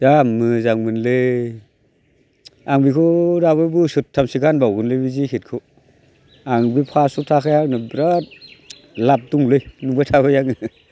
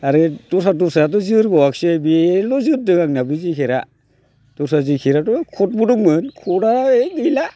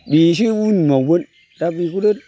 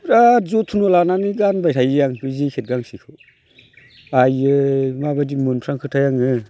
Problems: constant background noise